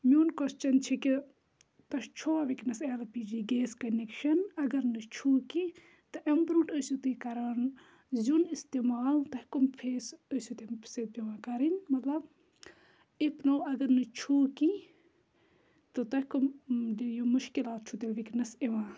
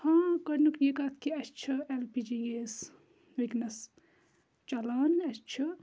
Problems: none marked